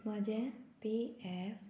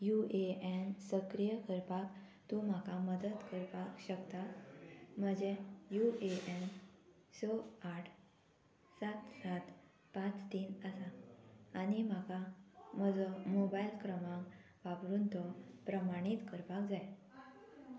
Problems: constant background noise